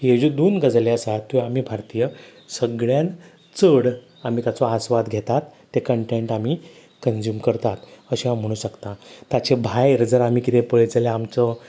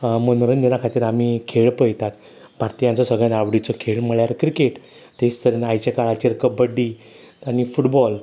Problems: constant background noise